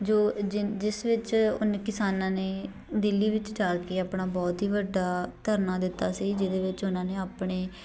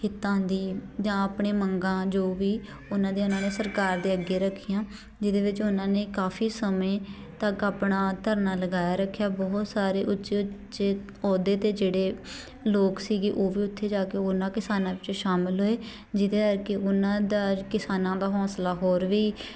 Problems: background sounds at intervals, continuous background conversations